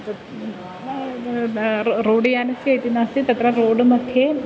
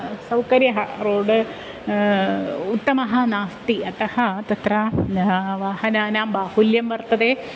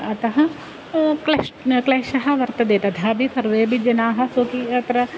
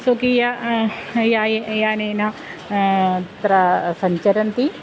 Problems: constant background noise